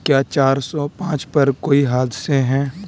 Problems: constant background noise